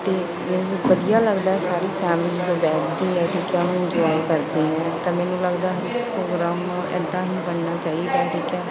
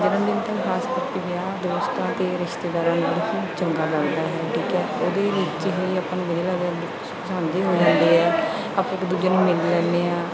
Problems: continuous background conversations